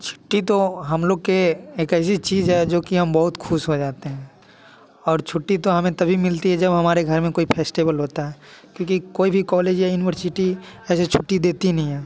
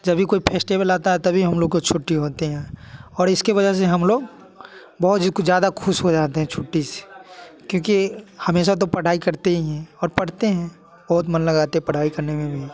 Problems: constant background noise